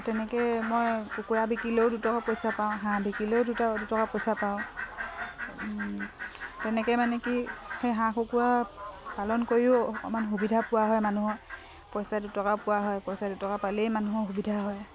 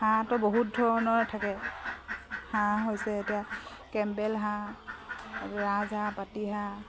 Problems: constant background noise